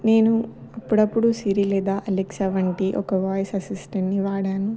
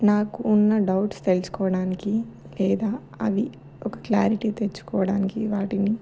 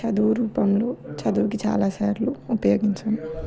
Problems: background conversations at intervals